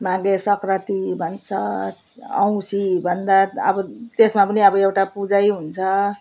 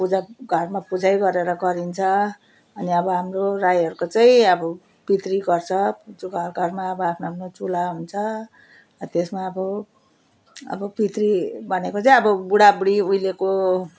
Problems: constant background noise